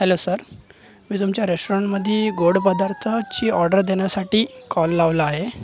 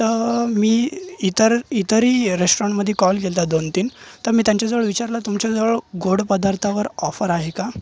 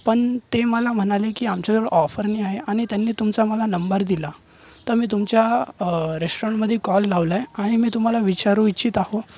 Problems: constant background noise, background conversations at intervals